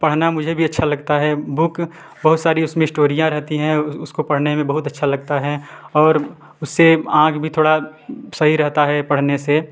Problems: background sounds at intervals, background conversations at intervals